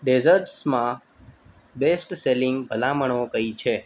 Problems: background sounds at intervals